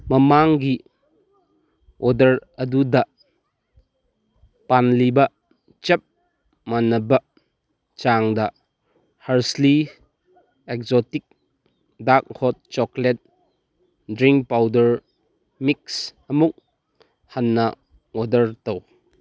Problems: background sounds at intervals